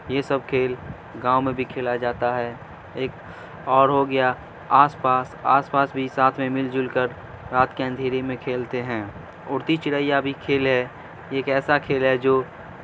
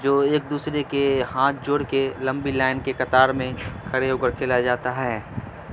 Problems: constant background noise, low volume